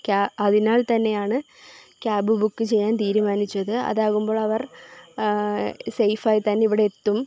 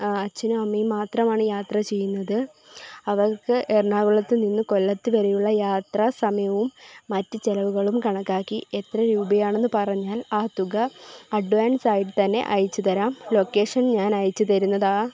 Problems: background sounds at intervals